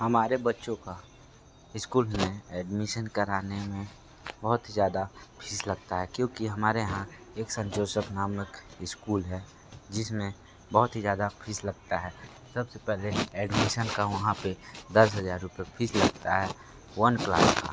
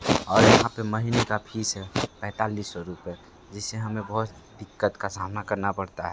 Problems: constant background noise